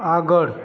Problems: constant background noise